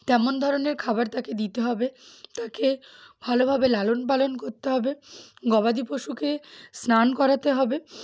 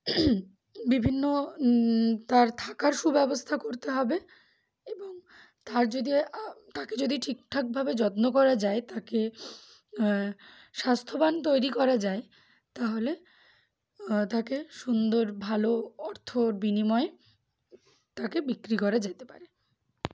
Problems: background sounds at intervals, background conversations at intervals